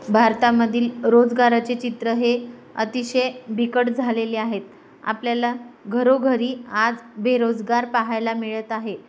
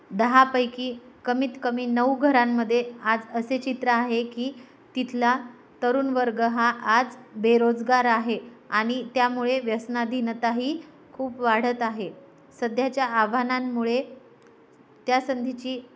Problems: none marked